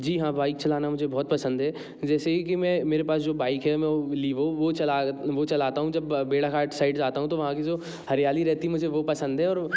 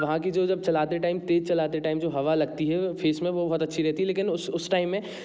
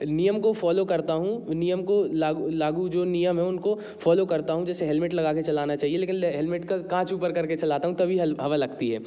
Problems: constant background noise